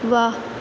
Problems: constant background noise, echo